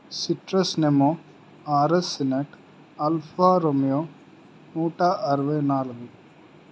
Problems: none marked